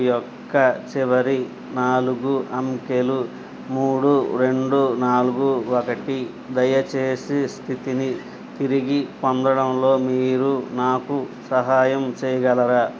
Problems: constant background noise